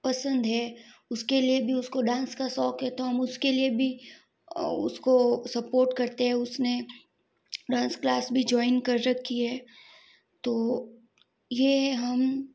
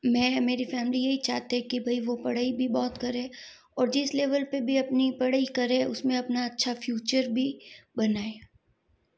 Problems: background sounds at intervals